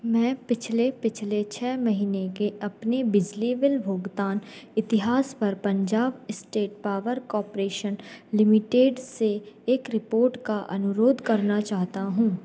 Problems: background sounds at intervals